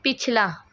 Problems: none marked